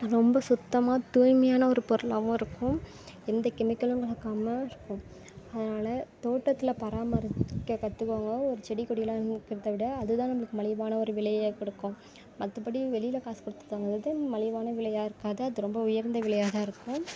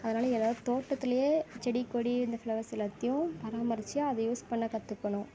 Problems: constant background noise